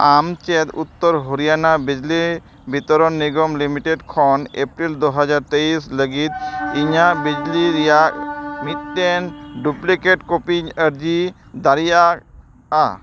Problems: background sounds at intervals